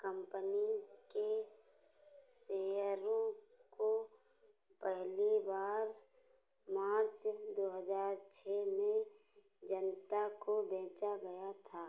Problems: background sounds at intervals